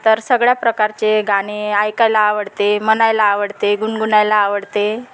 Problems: constant background noise